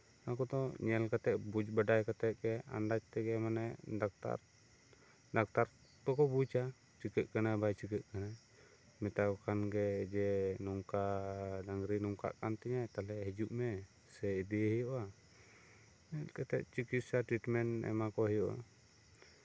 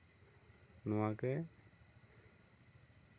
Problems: none marked